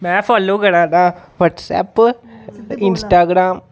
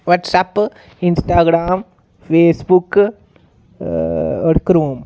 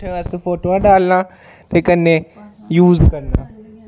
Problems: background sounds at intervals